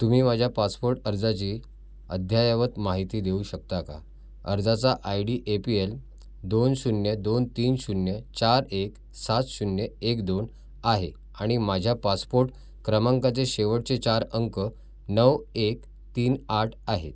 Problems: none marked